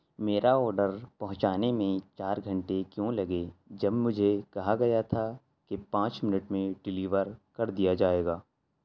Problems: constant background noise